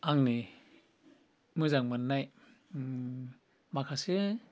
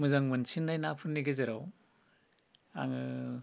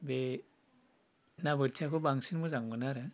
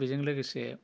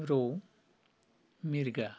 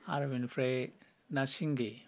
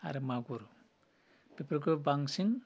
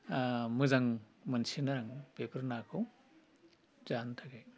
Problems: low volume